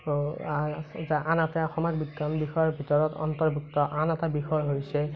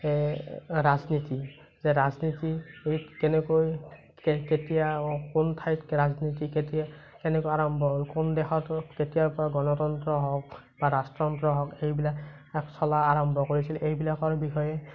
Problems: constant background noise